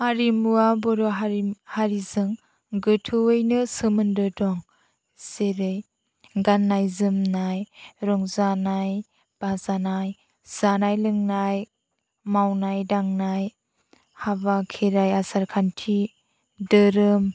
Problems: none marked